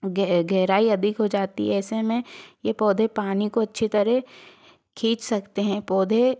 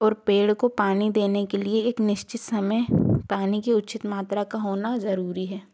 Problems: background sounds at intervals